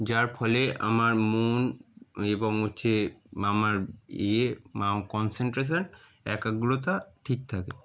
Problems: none marked